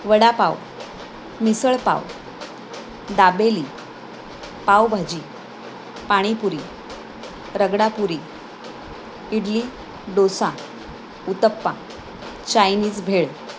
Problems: constant background noise